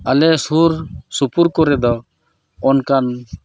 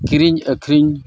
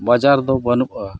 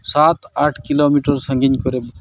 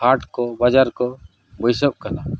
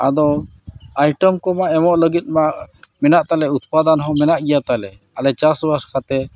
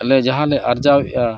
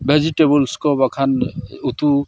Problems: none marked